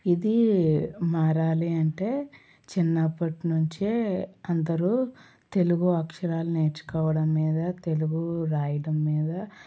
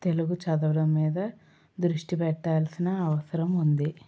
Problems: none marked